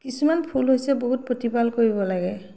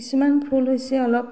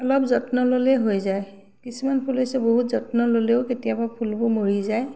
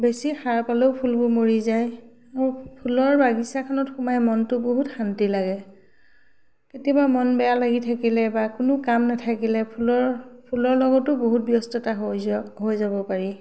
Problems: none marked